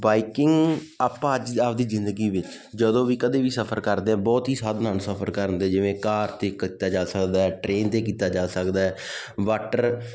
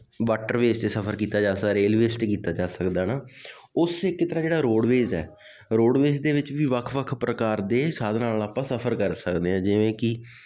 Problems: constant background noise